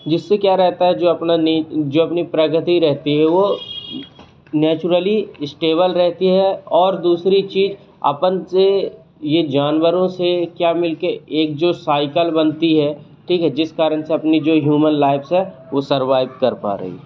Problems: constant background noise